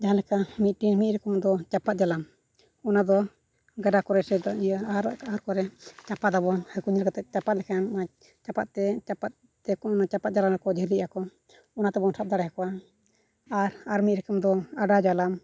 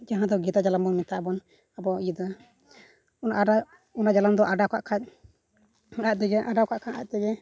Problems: none marked